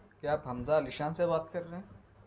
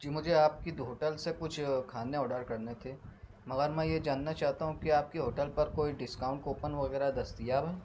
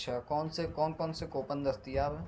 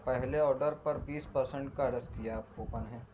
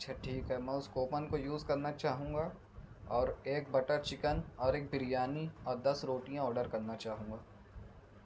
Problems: none marked